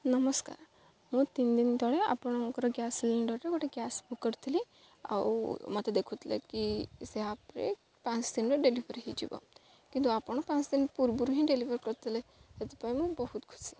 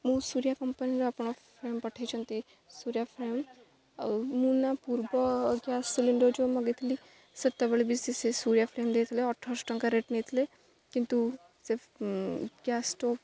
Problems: none marked